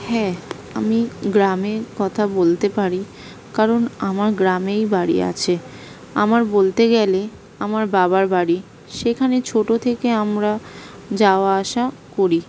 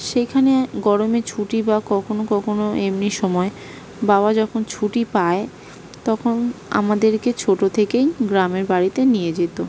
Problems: background sounds at intervals